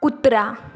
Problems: background sounds at intervals